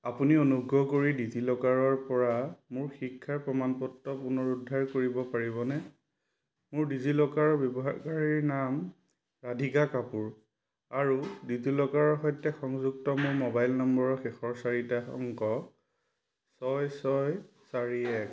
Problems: background sounds at intervals